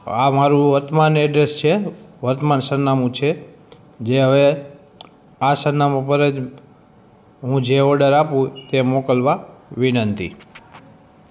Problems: none marked